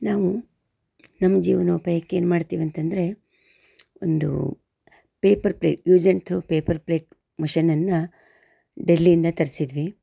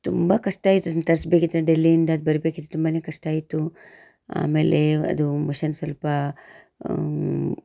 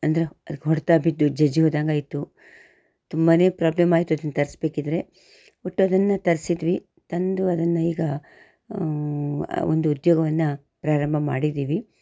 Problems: none marked